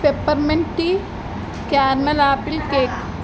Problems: constant background noise, background conversations at intervals